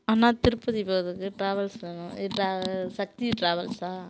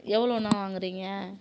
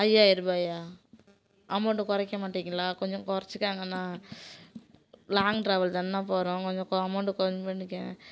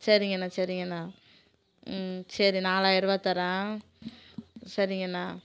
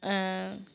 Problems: constant background noise